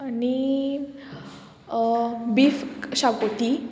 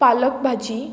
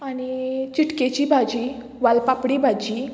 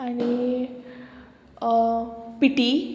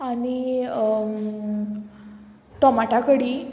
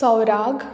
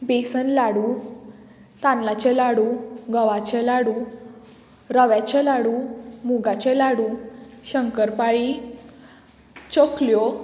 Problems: none marked